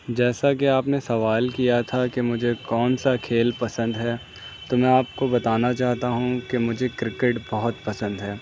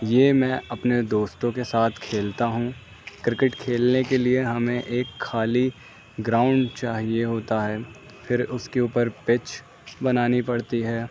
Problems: none marked